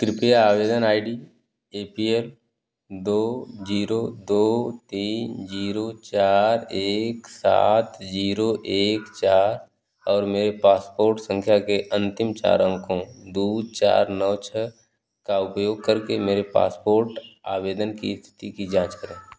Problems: none marked